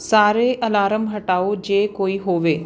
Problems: background sounds at intervals